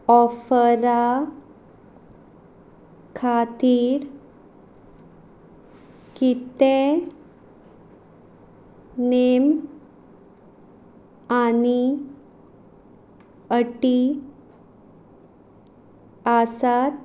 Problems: none marked